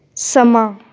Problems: background conversations at intervals